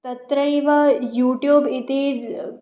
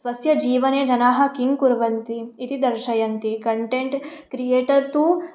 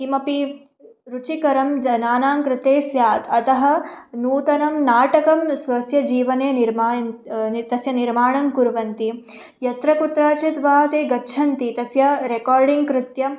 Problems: none marked